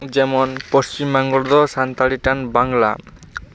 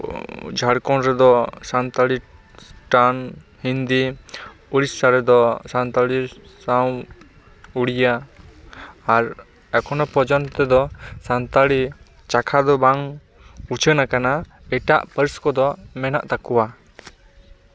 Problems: none marked